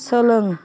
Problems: background sounds at intervals, background conversations at intervals